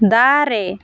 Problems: constant background noise